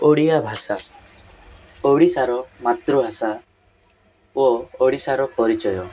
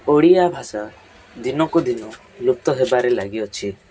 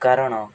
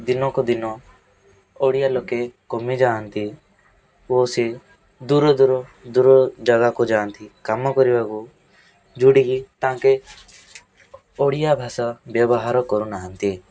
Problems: constant background noise, continuous background conversations